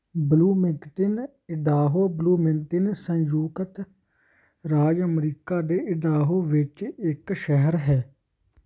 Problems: constant background noise